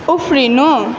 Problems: none marked